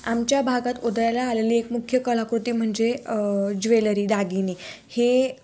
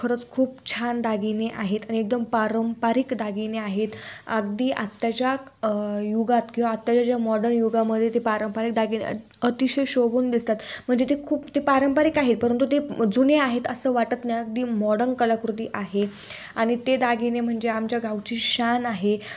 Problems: none marked